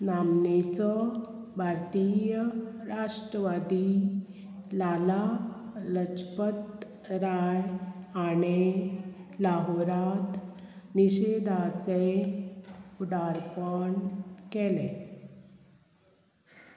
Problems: constant background noise